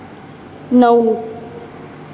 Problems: none marked